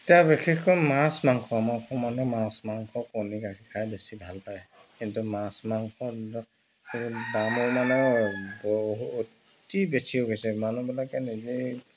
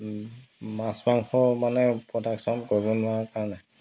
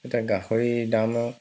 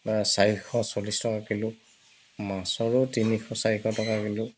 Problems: background sounds at intervals